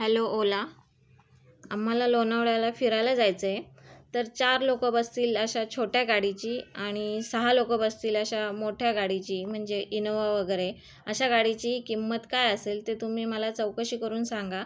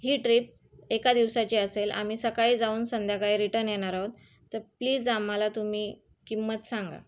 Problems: none marked